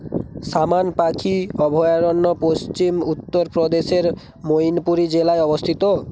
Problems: constant background noise